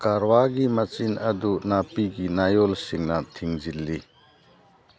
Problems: background sounds at intervals